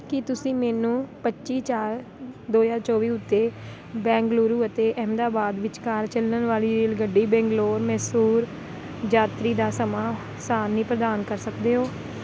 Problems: constant background noise